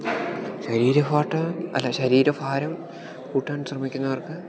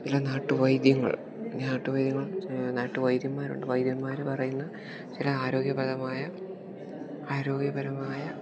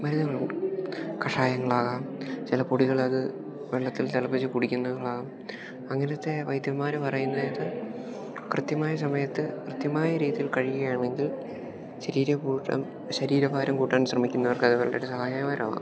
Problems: background sounds at intervals, low volume